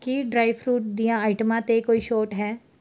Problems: none marked